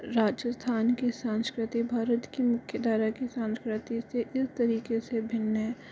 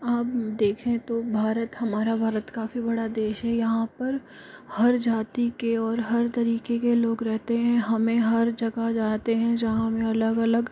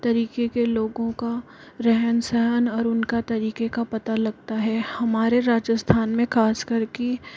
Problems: constant background noise